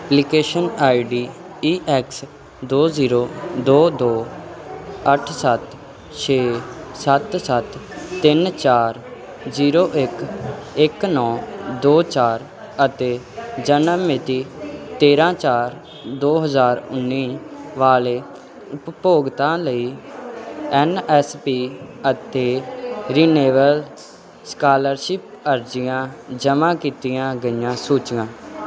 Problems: constant background noise